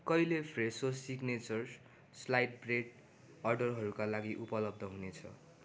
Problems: none marked